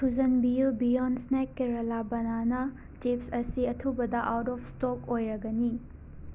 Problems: none marked